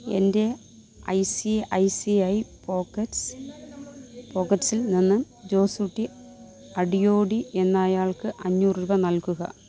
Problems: none marked